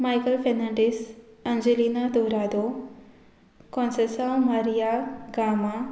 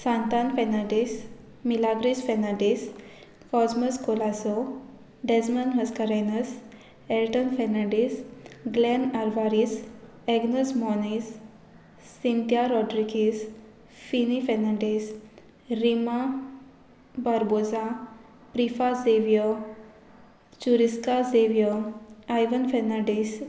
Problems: background sounds at intervals